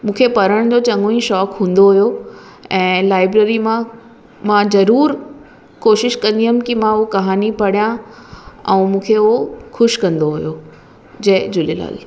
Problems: constant background noise, echo